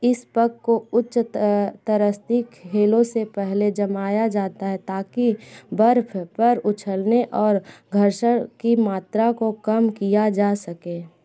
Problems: background sounds at intervals, background conversations at intervals